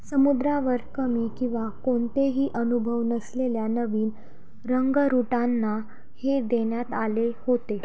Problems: background sounds at intervals